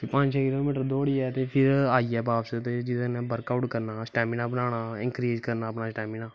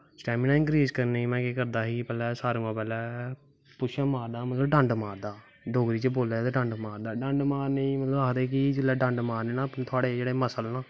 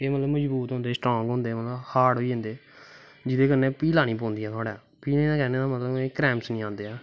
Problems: constant background noise